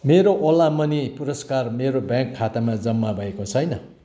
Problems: none marked